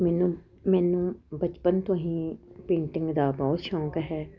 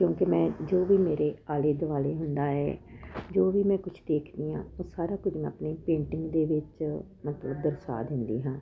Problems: none marked